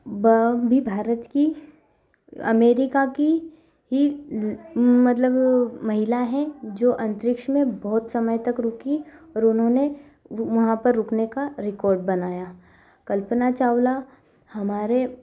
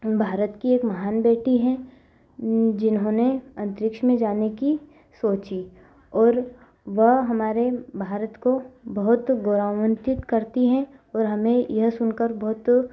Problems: none marked